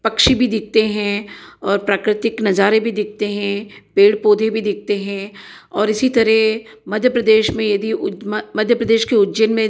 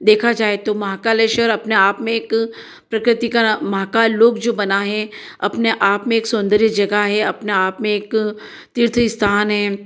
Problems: echo